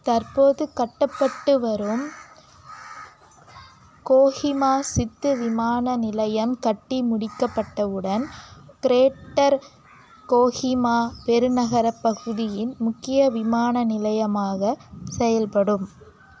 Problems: none marked